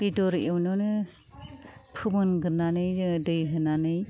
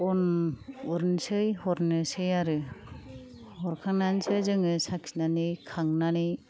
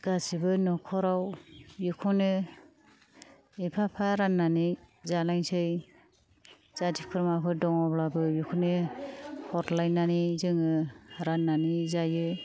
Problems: low volume